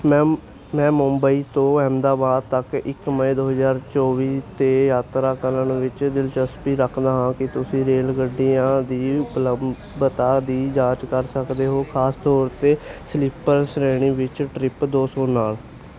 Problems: constant background noise